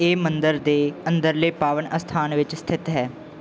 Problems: background sounds at intervals